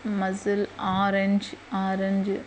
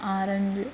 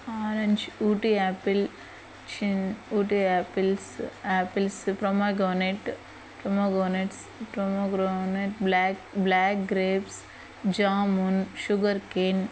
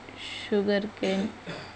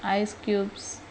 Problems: background sounds at intervals